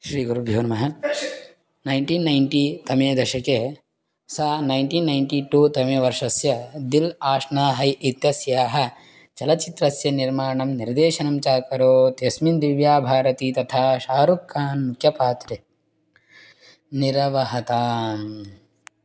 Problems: none marked